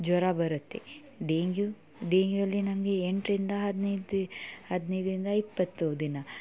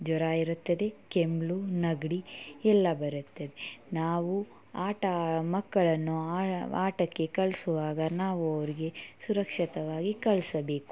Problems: none marked